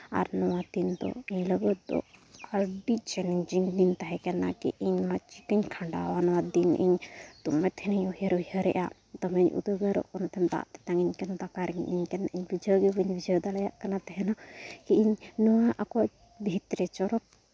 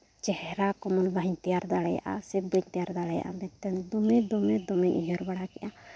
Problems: constant background noise